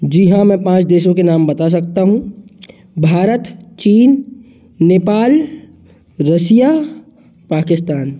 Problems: background sounds at intervals